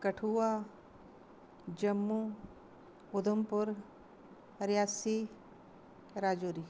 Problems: constant background noise